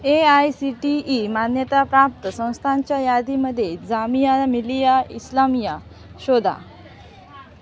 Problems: constant background noise, continuous background conversations